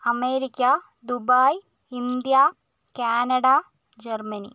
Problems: low volume